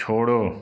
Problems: background sounds at intervals, background conversations at intervals